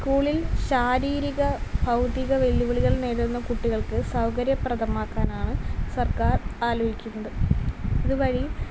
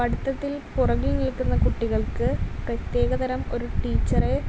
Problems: none marked